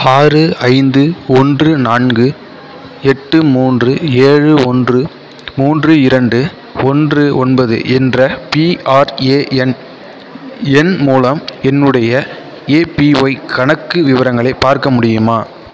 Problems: constant background noise